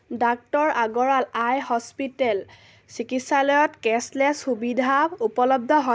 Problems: none marked